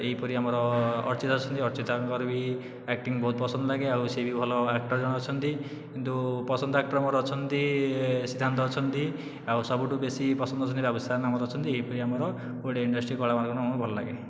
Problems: none marked